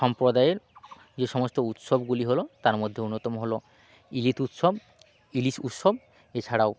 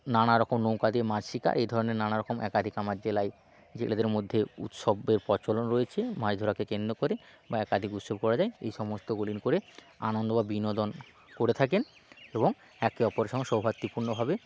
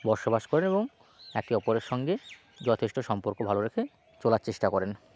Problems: none marked